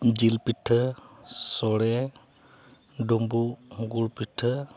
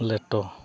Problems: constant background noise, background conversations at intervals